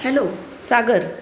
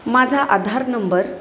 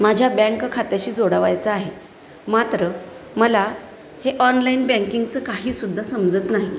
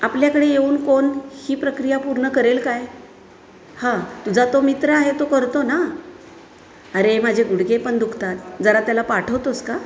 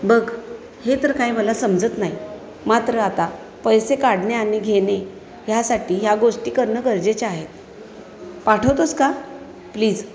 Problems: constant background noise, continuous background conversations